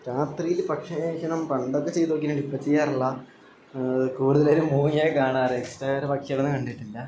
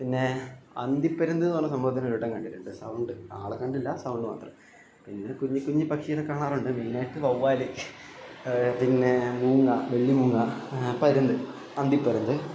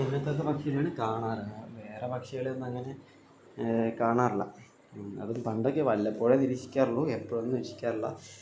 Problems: constant background noise, low volume